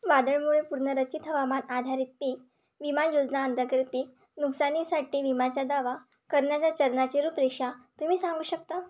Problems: constant background noise